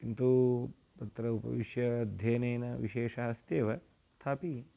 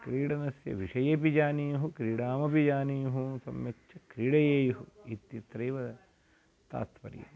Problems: constant background noise